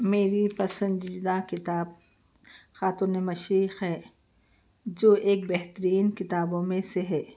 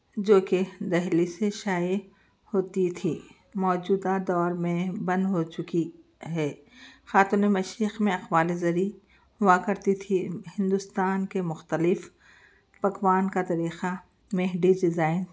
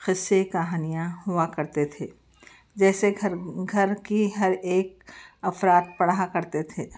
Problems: none marked